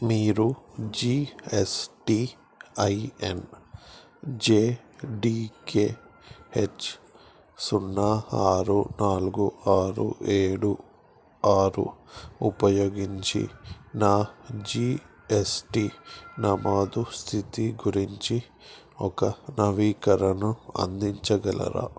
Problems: background sounds at intervals